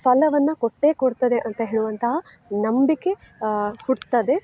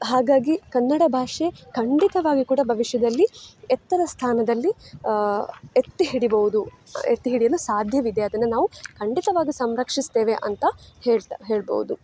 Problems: none marked